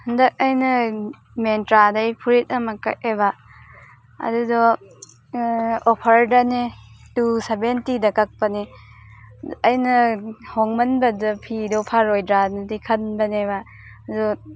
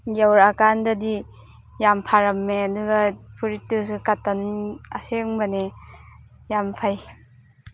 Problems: background sounds at intervals